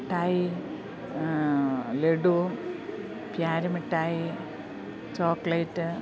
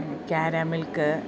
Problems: background sounds at intervals